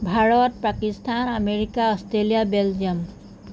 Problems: none marked